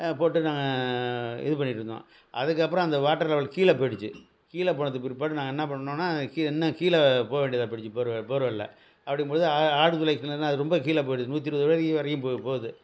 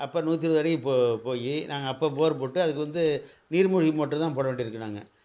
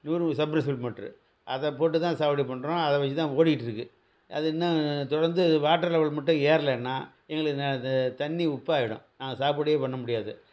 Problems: none marked